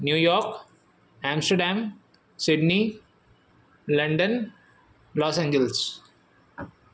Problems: none marked